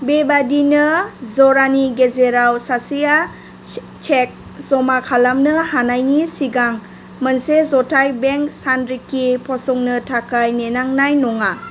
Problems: constant background noise